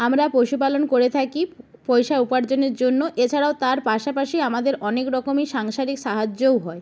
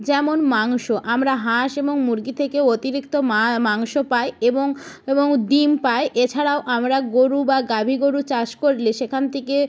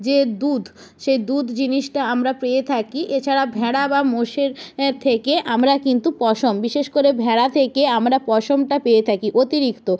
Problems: none marked